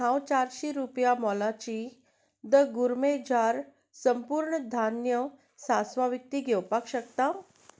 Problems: background sounds at intervals